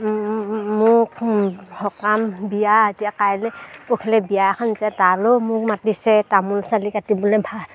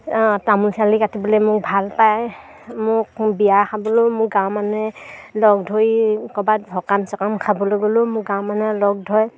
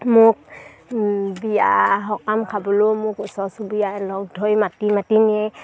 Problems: none marked